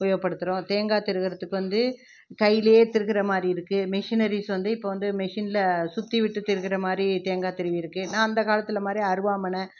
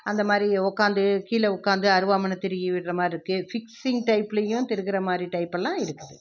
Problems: none marked